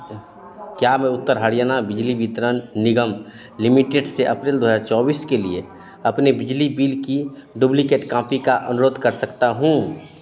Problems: constant background noise, continuous background conversations